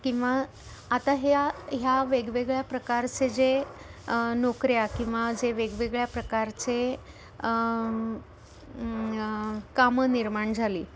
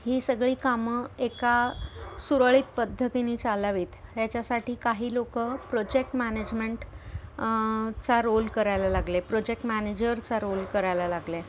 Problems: background sounds at intervals